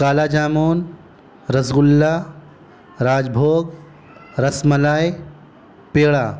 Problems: constant background noise